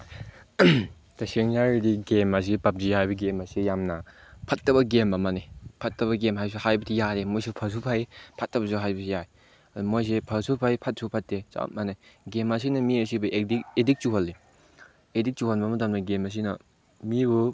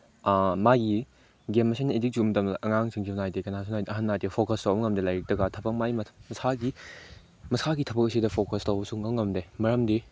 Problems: none marked